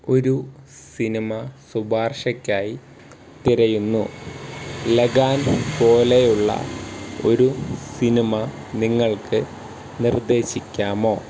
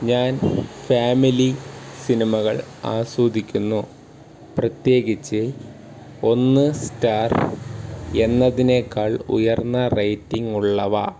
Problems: background sounds at intervals